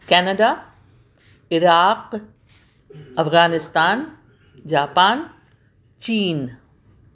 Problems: background sounds at intervals